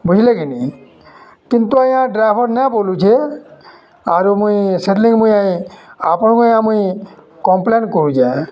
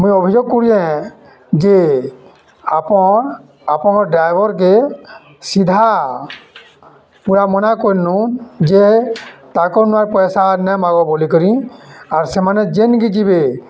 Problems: constant background noise, continuous background conversations